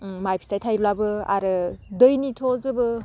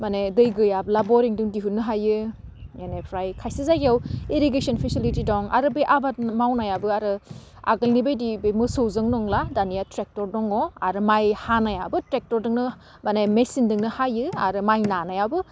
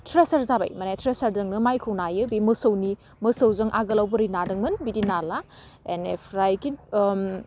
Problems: none marked